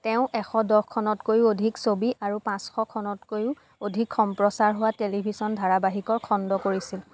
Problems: constant background noise